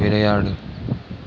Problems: none marked